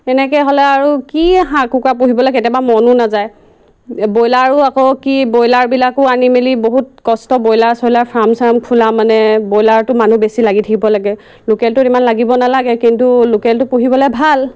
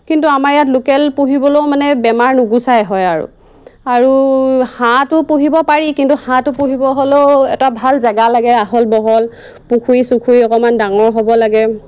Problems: constant background noise